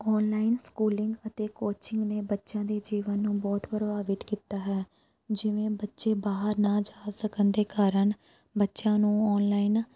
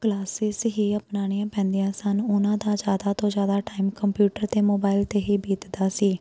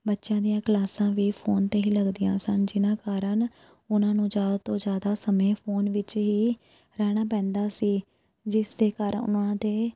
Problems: background sounds at intervals